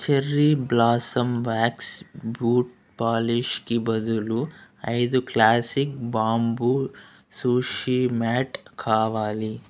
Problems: constant background noise